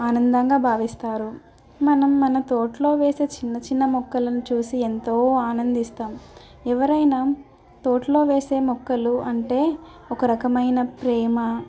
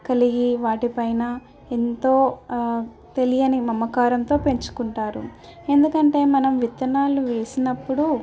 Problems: none marked